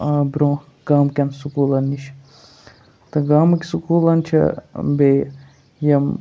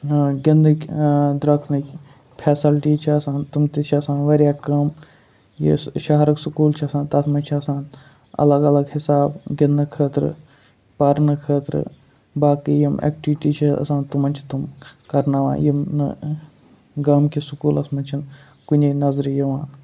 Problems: constant background noise